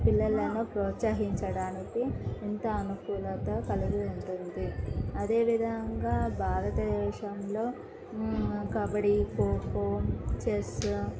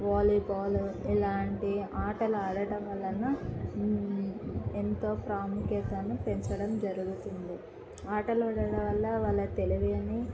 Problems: background conversations at intervals, low volume